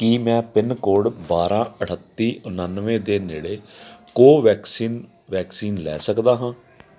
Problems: none marked